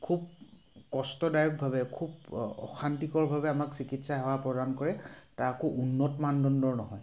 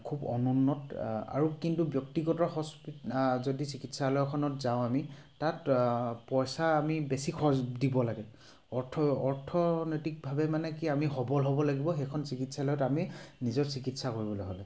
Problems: background sounds at intervals